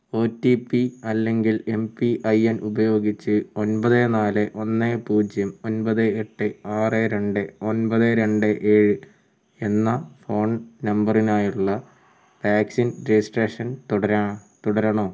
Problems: low volume